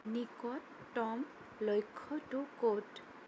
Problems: low volume